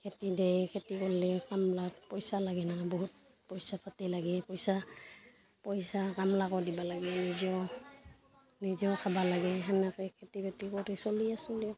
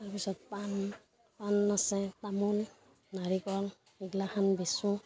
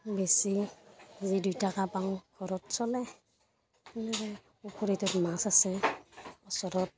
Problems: continuous background conversations